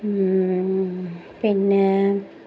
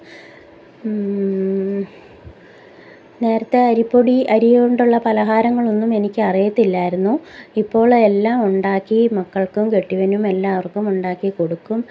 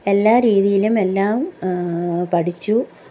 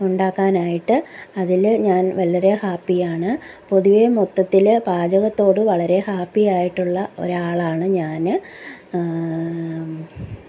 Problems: background conversations at intervals